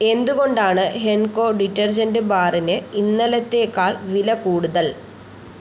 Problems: constant background noise